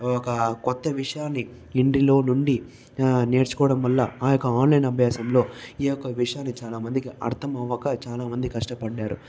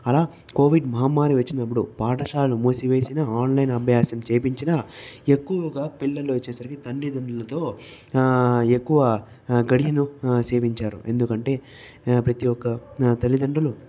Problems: background conversations at intervals